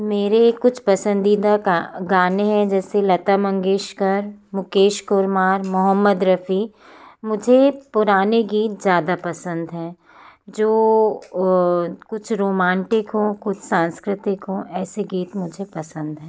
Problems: constant background noise